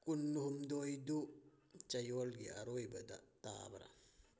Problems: none marked